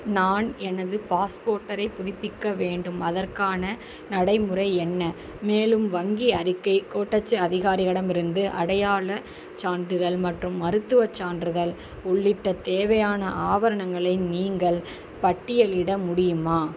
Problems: constant background noise